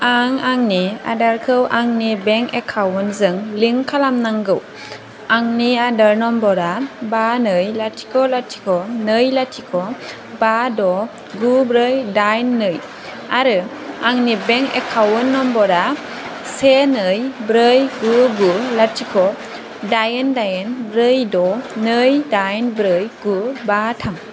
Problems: constant background noise